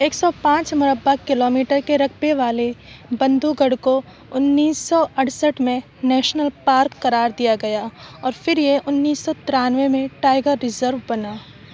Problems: none marked